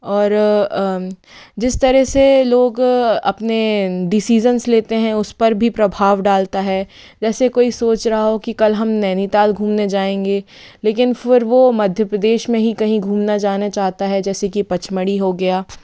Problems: constant background noise